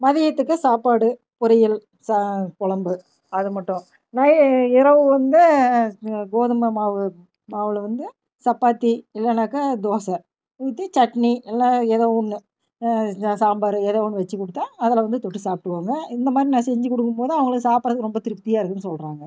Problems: none marked